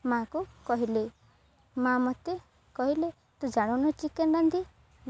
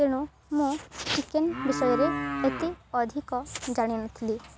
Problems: background sounds at intervals